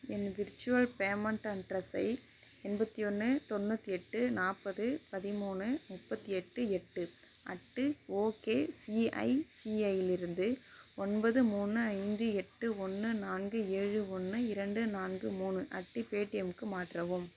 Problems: low volume